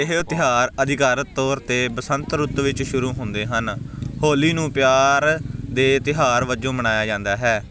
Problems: constant background noise